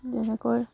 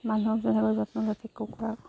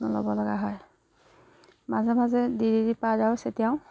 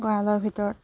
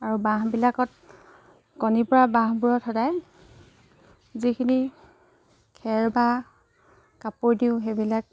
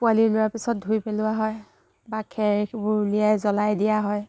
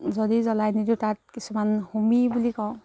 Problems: background sounds at intervals, background conversations at intervals